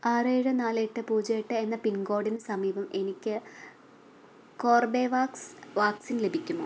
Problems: none marked